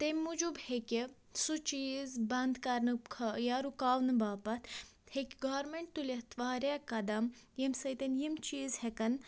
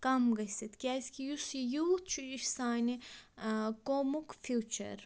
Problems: low volume